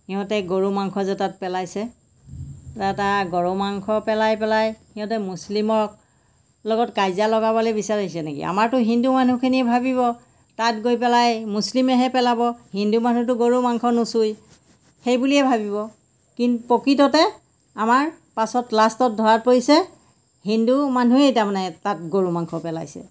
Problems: none marked